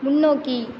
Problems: none marked